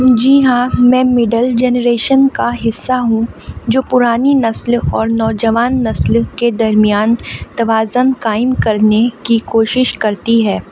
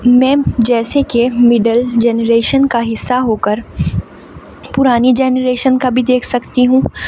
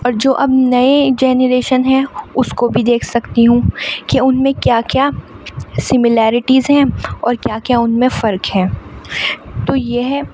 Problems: constant background noise, background conversations at intervals